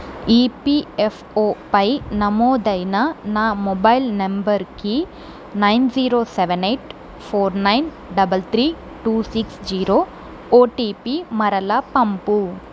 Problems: constant background noise